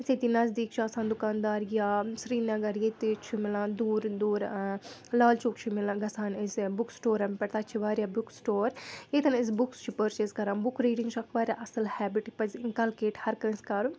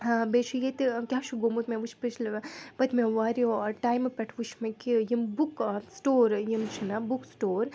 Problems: none marked